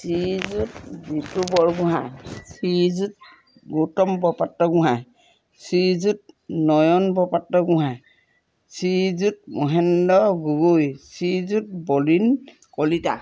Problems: background sounds at intervals